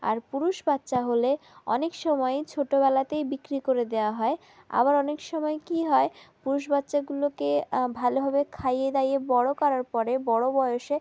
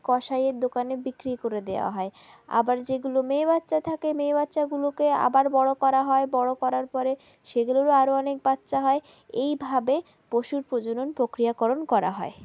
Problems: background sounds at intervals